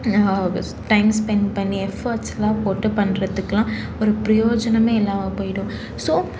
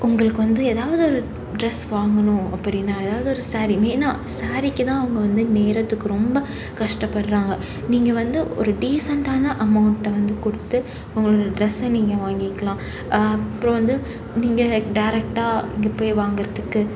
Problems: constant background noise, background conversations at intervals